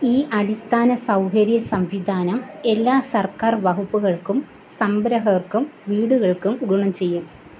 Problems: constant background noise